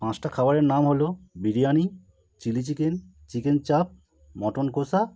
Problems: none marked